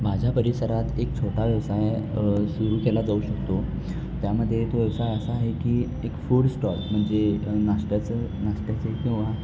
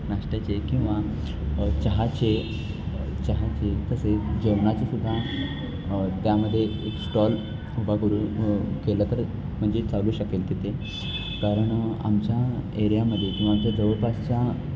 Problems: constant background noise